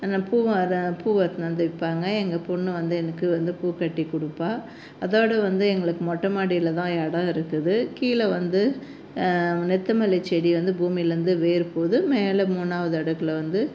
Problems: constant background noise